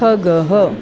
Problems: constant background noise